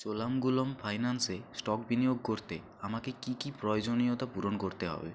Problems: constant background noise